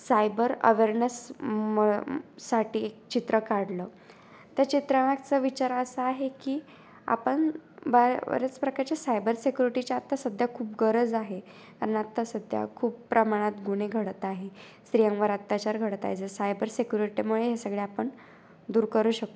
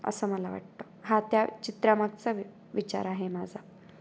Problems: constant background noise